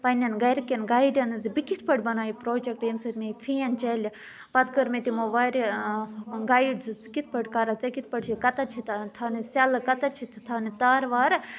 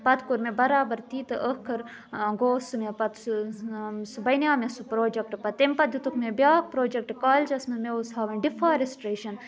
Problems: none marked